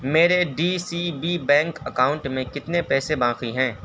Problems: constant background noise